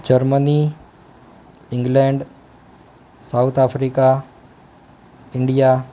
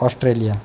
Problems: none marked